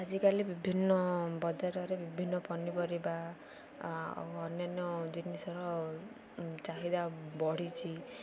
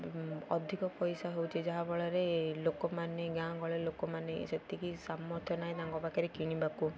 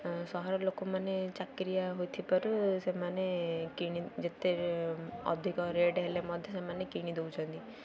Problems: constant background noise, continuous background conversations